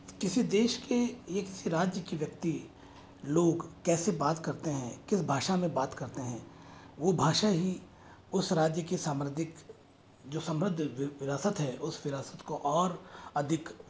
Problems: constant background noise